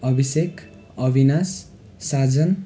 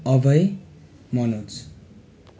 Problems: constant background noise